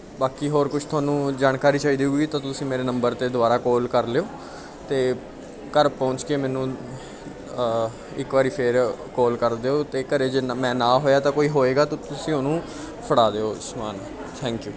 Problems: continuous background conversations